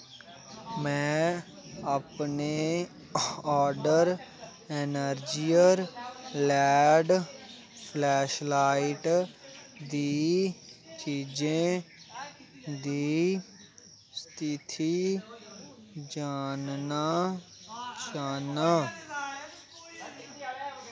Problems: constant background noise